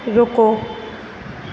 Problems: constant background noise